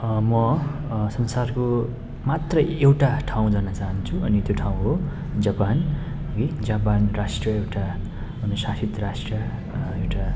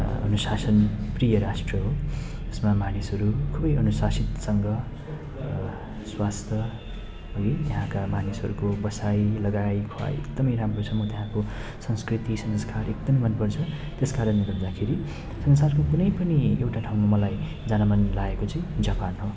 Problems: background sounds at intervals